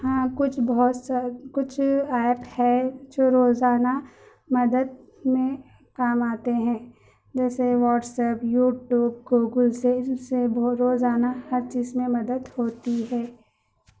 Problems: constant background noise, background conversations at intervals